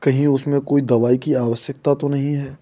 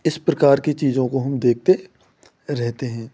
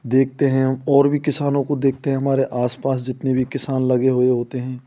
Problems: constant background noise